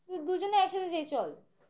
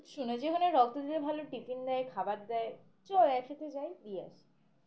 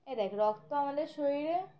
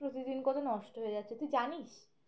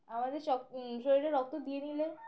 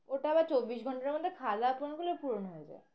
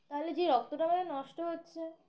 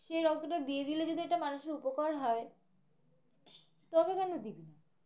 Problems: constant background noise, continuous background conversations